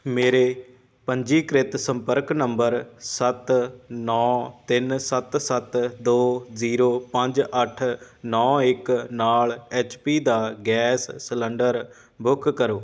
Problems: none marked